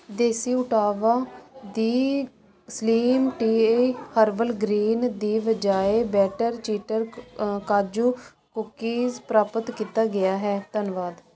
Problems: constant background noise